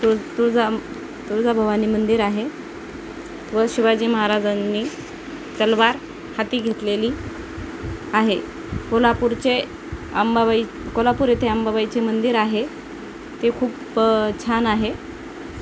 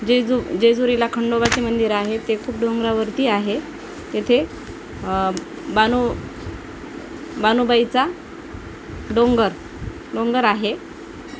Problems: constant background noise